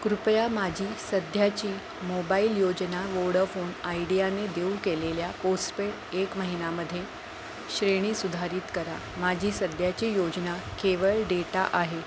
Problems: constant background noise